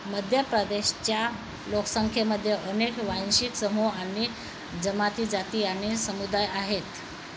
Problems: constant background noise